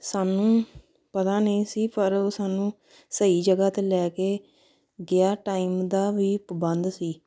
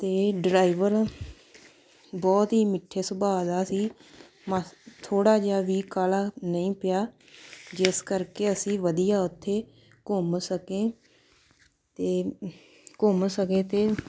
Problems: background sounds at intervals